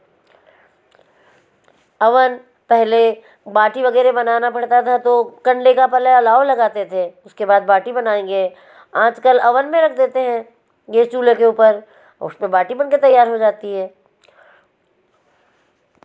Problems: none marked